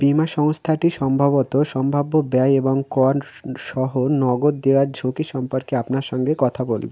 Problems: constant background noise